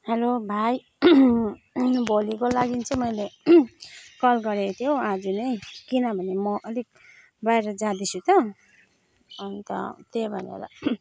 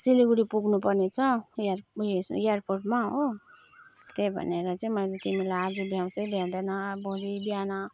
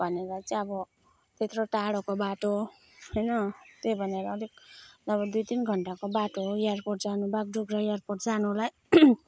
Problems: none marked